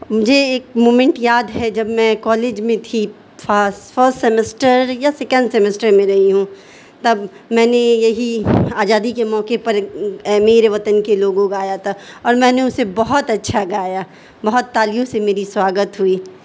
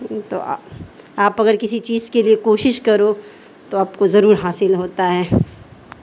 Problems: constant background noise